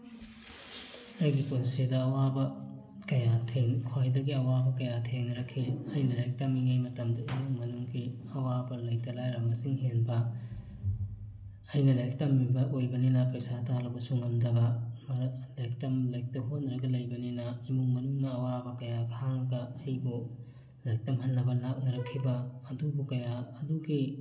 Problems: background sounds at intervals, background conversations at intervals